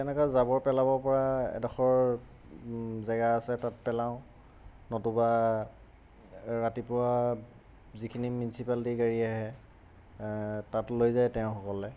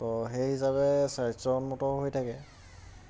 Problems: constant background noise